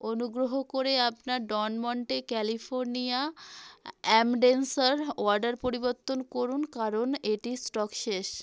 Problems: constant background noise